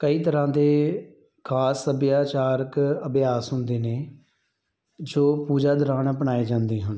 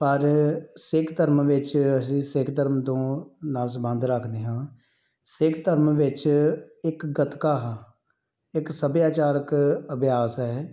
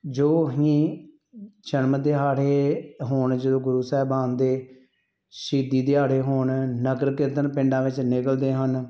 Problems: background sounds at intervals